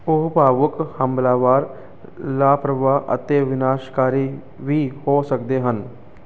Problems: none marked